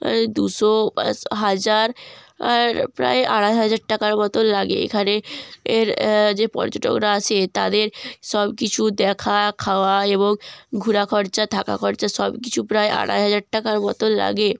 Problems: constant background noise